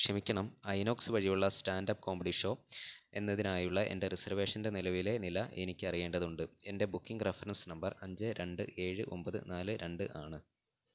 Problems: none marked